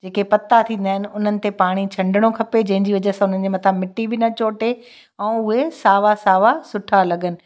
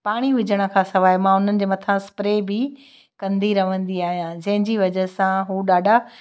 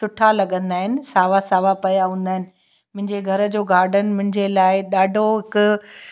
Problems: none marked